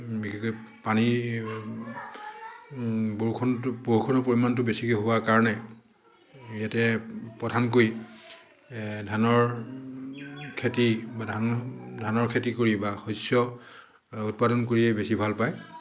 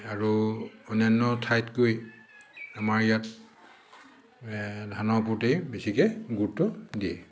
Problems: background sounds at intervals, echo